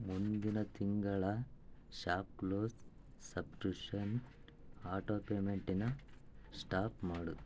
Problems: low volume